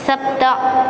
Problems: constant background noise